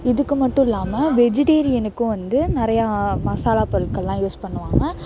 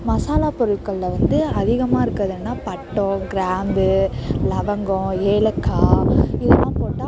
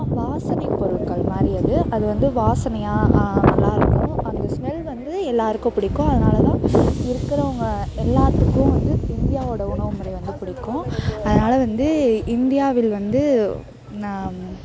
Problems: constant background noise